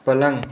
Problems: constant background noise